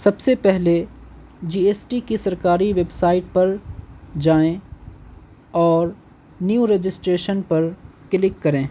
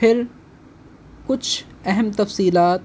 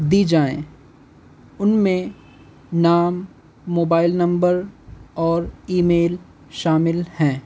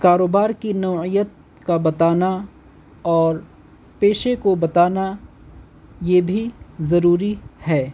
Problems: constant background noise